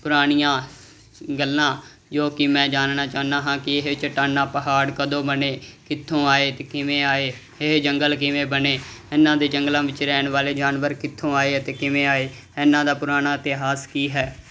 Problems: none marked